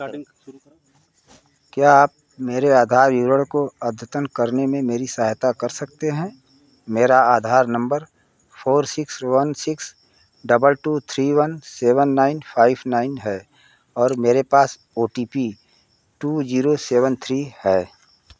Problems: none marked